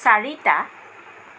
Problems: constant background noise